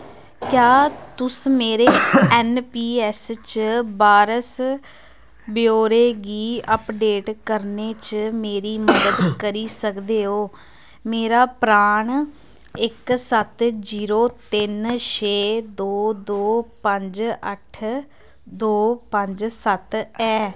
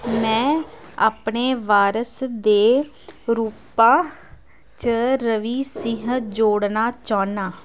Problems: constant background noise